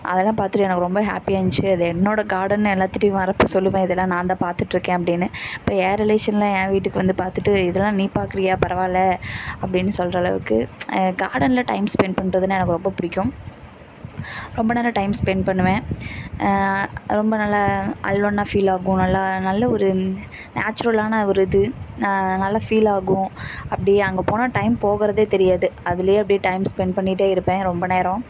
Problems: none marked